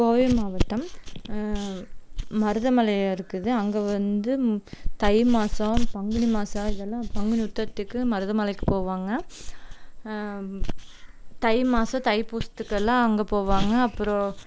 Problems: none marked